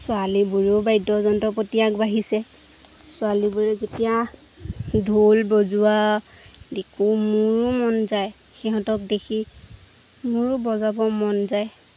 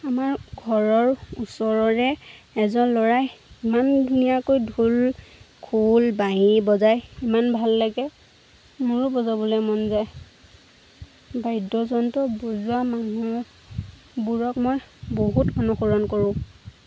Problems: constant background noise